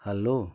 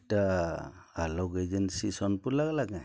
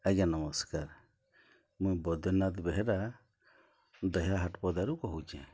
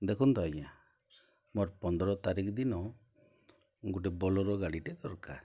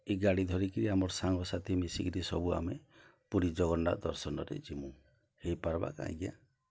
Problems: low volume